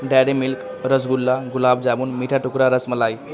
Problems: constant background noise